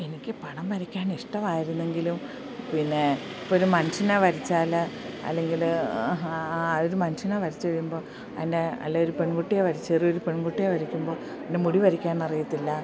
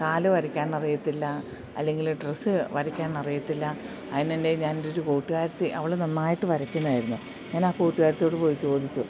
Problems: none marked